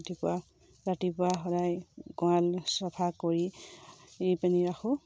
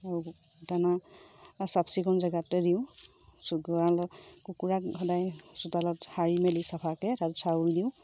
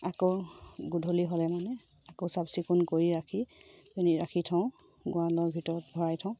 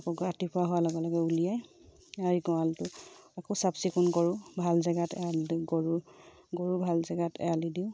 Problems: low volume